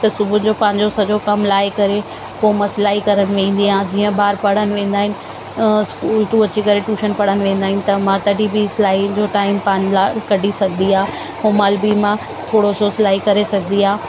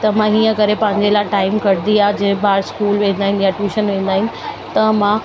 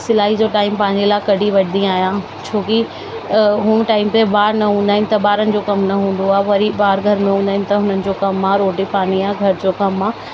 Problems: constant background noise